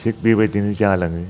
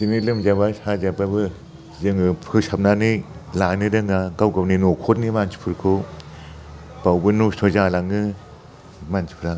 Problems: constant background noise